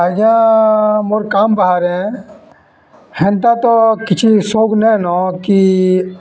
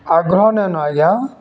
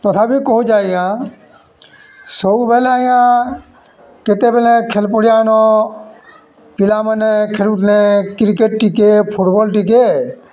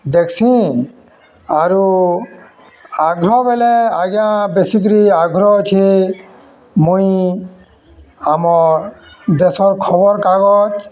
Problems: constant background noise, continuous background conversations